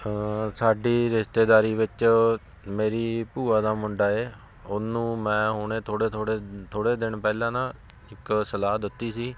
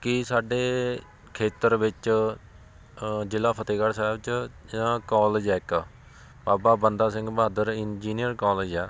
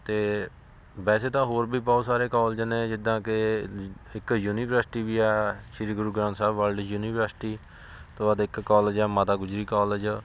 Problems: constant background noise